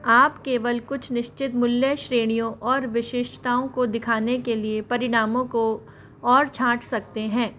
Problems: constant background noise, background conversations at intervals